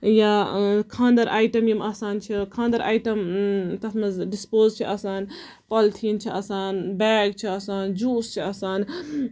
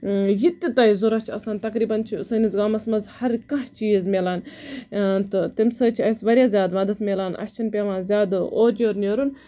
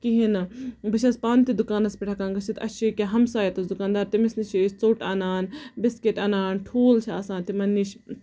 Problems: background sounds at intervals, background conversations at intervals